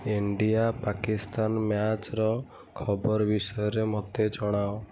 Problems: none marked